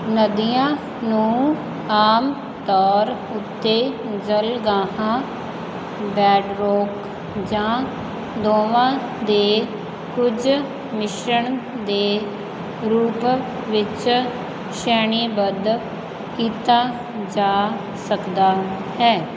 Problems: constant background noise